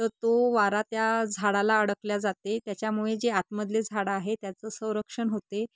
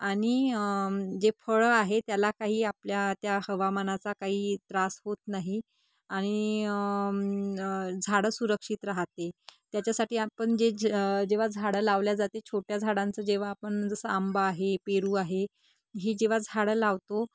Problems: none marked